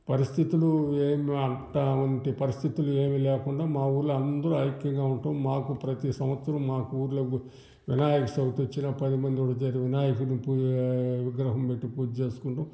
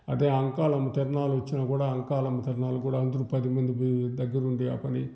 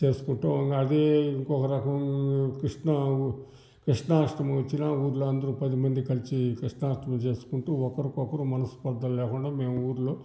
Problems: none marked